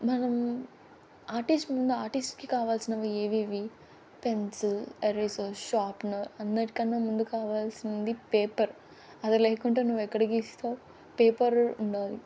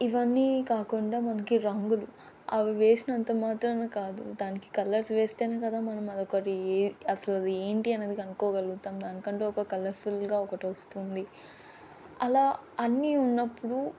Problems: constant background noise